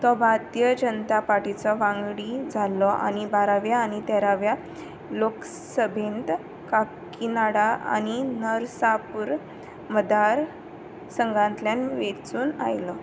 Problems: background sounds at intervals